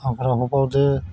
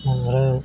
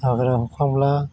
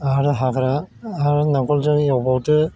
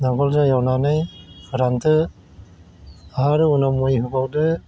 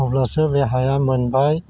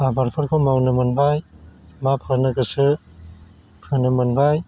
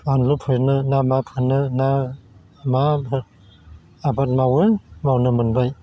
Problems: constant background noise